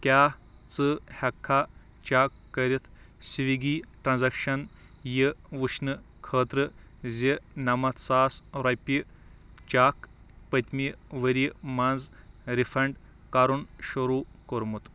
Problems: background sounds at intervals